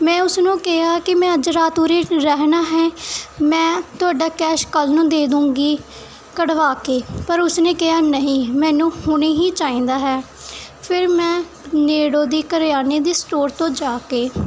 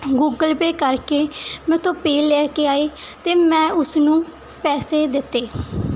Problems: none marked